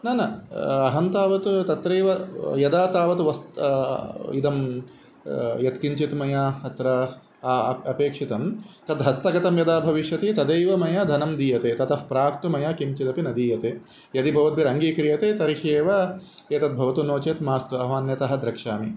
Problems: constant background noise